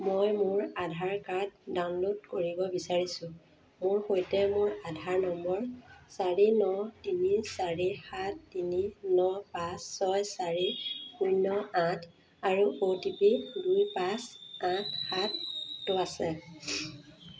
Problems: constant background noise